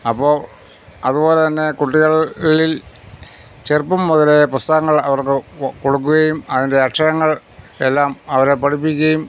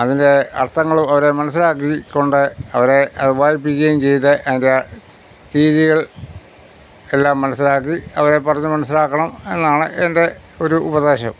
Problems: none marked